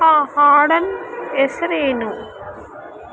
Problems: constant background noise